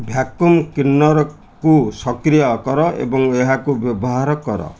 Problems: none marked